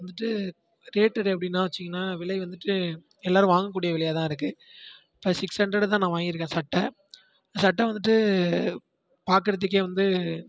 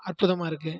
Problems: constant background noise